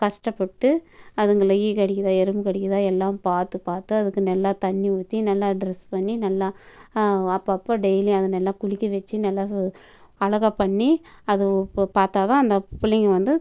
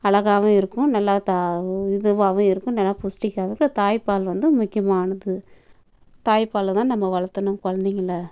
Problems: background sounds at intervals